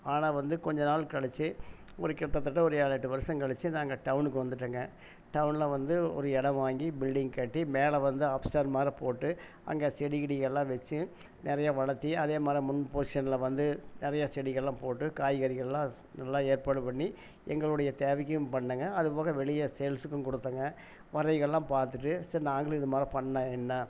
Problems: none marked